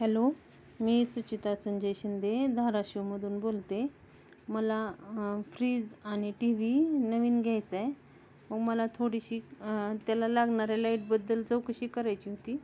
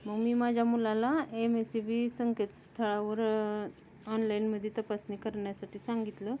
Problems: constant background noise, background conversations at intervals